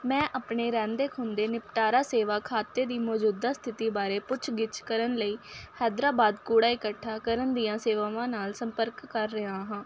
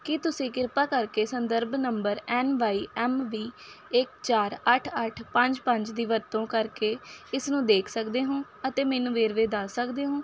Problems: none marked